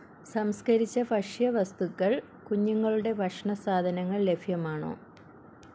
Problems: constant background noise